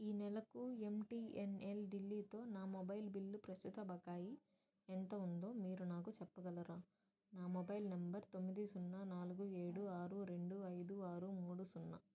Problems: low volume